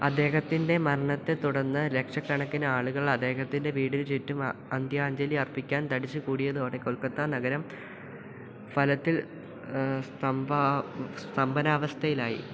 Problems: none marked